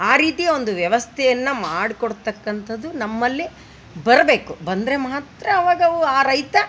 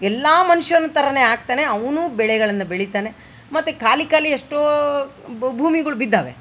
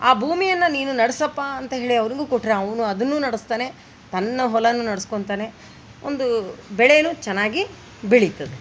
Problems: none marked